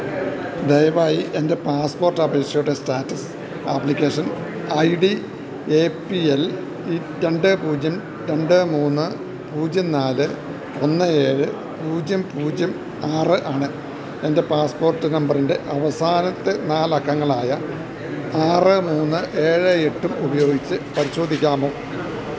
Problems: constant background noise, low volume